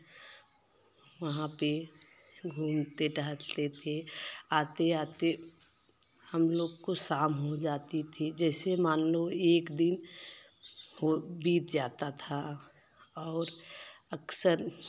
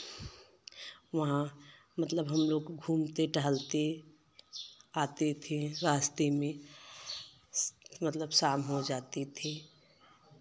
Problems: constant background noise